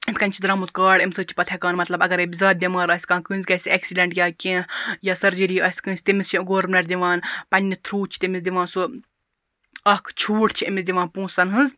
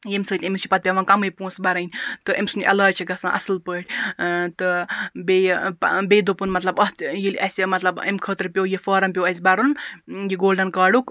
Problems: background sounds at intervals